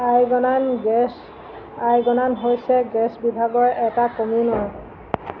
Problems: constant background noise